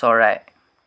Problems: none marked